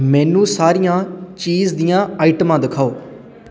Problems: constant background noise